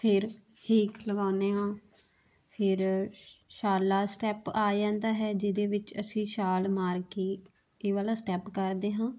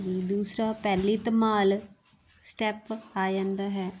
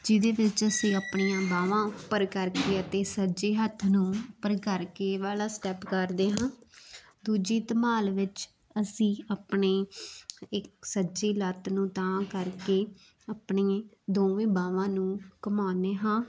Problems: constant background noise